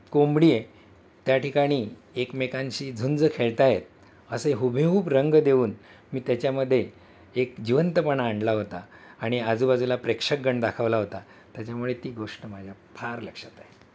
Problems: constant background noise, background conversations at intervals